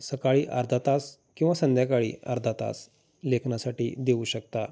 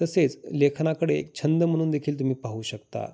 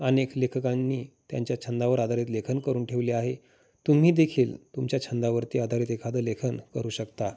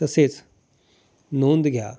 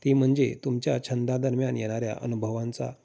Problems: none marked